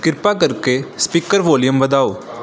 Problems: background sounds at intervals